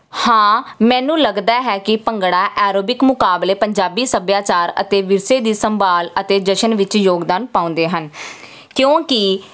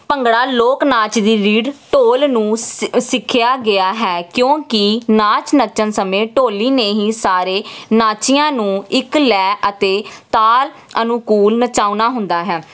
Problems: none marked